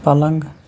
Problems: constant background noise